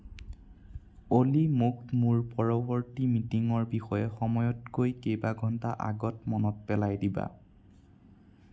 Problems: none marked